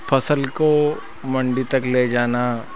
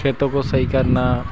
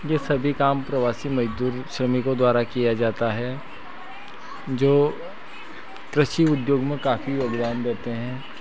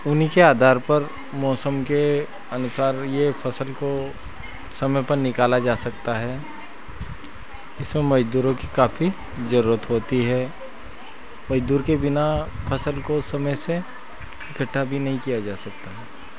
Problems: constant background noise